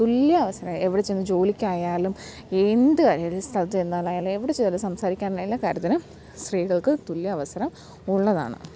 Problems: low volume